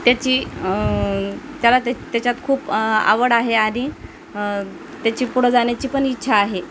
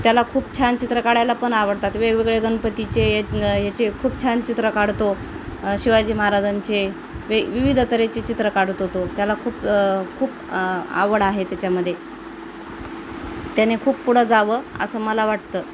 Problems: constant background noise